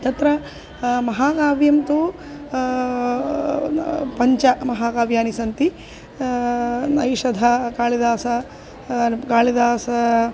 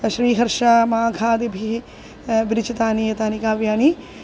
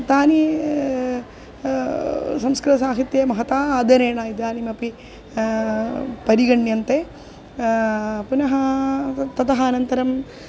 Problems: constant background noise